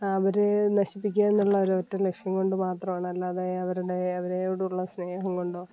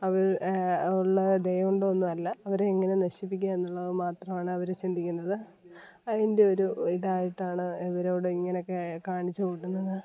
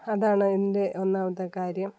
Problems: background sounds at intervals, background conversations at intervals